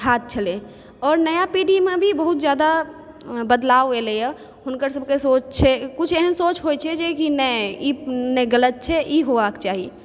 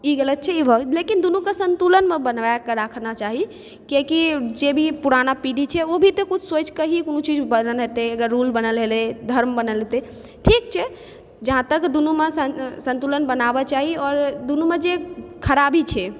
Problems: background sounds at intervals